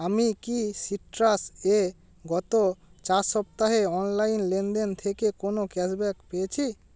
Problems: none marked